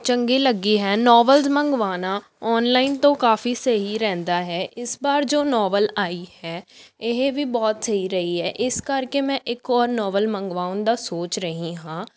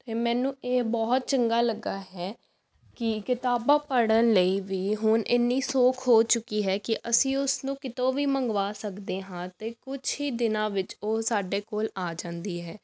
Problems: background sounds at intervals